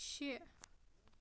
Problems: none marked